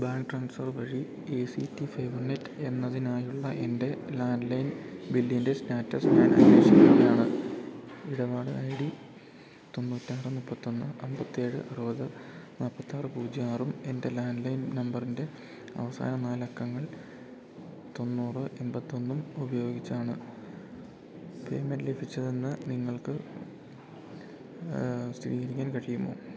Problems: constant background noise